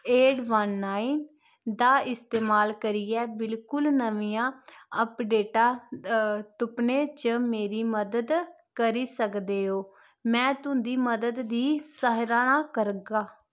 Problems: constant background noise